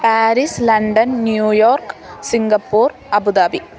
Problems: constant background noise